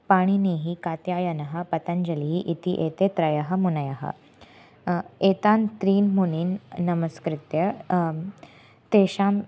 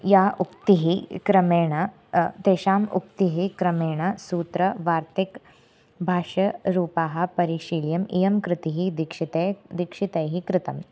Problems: constant background noise